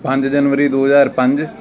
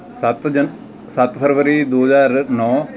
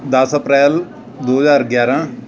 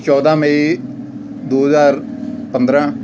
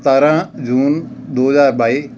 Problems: constant background noise